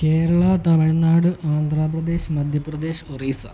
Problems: constant background noise